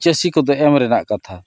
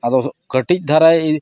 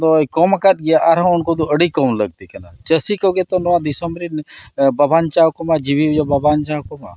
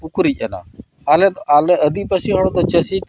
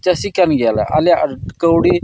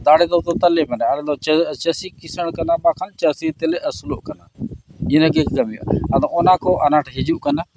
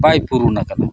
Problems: none marked